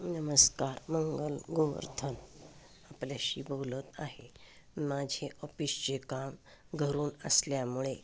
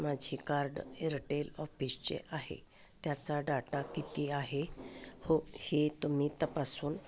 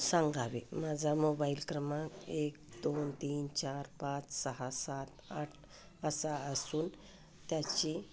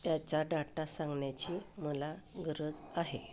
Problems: constant background noise, background conversations at intervals